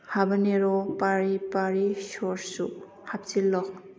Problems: background conversations at intervals